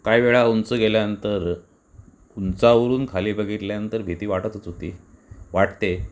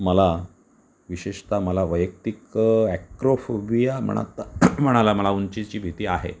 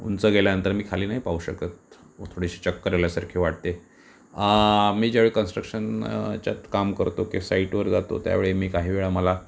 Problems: none marked